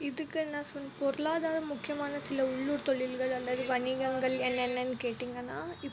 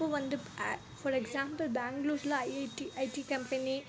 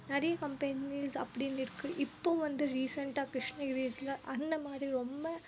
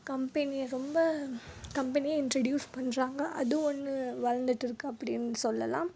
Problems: low volume